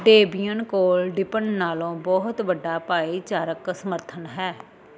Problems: constant background noise